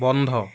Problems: none marked